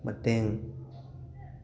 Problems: constant background noise